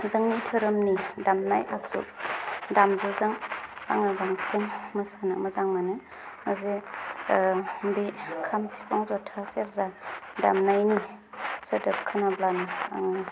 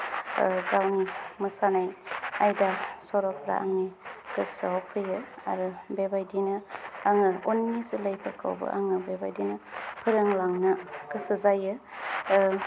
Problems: none marked